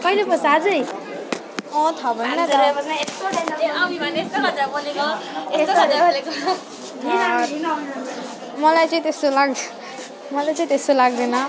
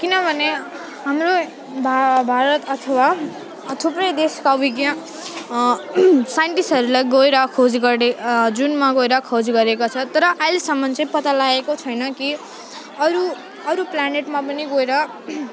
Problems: constant background noise, continuous background conversations